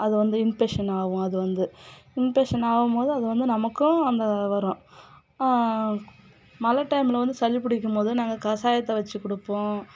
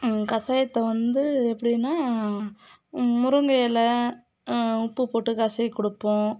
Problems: background conversations at intervals